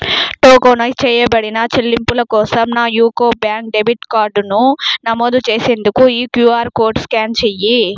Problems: none marked